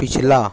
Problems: constant background noise, low volume